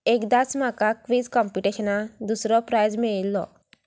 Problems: none marked